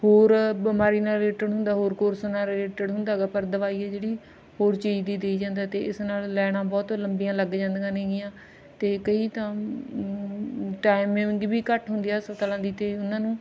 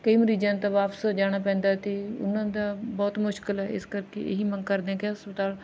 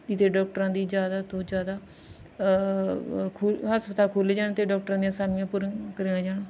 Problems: none marked